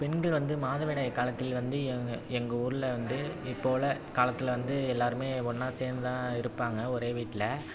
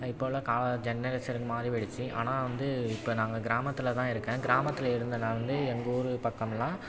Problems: constant background noise, background conversations at intervals